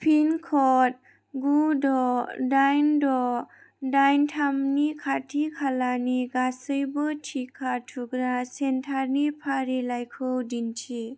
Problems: none marked